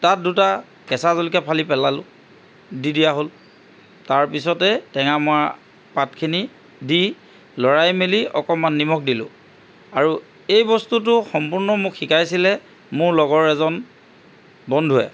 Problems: constant background noise